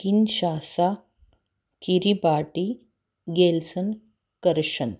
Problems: none marked